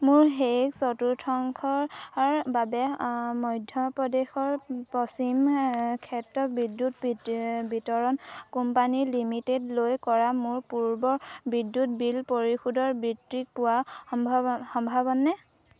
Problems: none marked